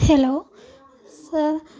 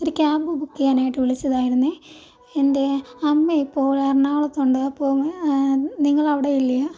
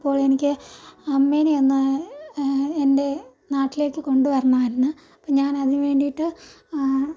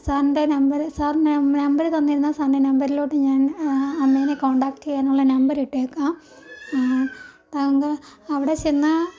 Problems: background sounds at intervals